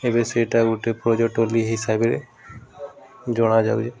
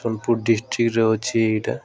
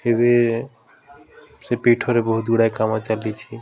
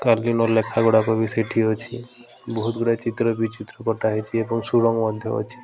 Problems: constant background noise